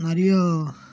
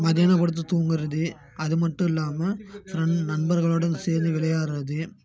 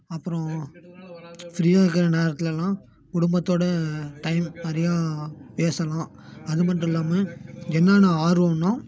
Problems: none marked